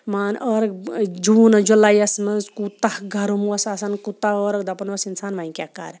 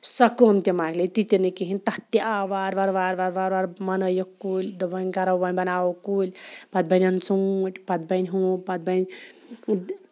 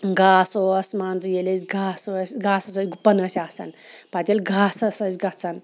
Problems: background sounds at intervals